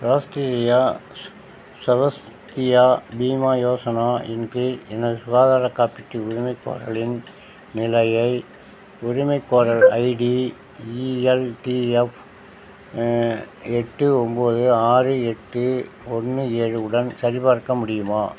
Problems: none marked